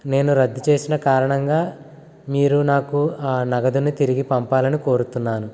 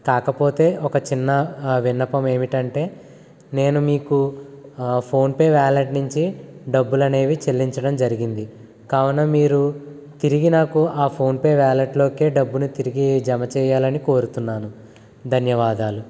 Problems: constant background noise